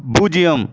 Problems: background sounds at intervals